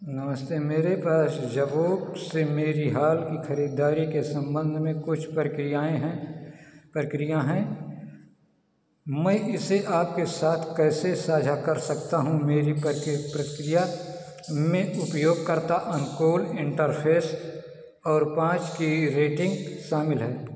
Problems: none marked